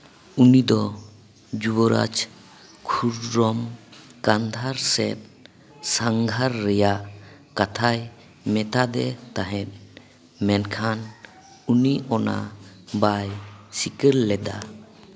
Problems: background conversations at intervals, echo